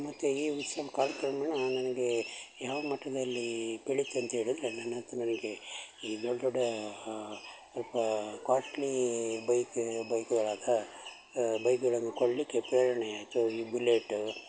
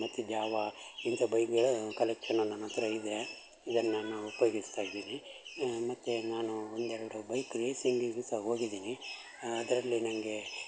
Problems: constant background noise